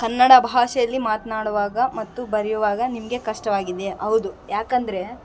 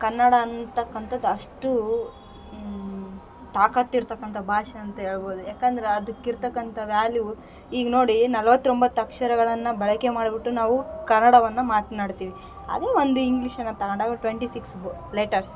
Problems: background sounds at intervals